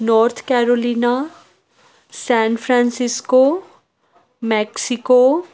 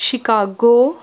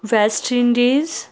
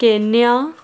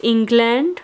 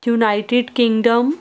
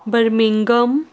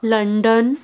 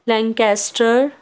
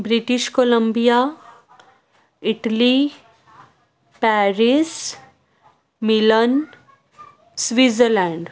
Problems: none marked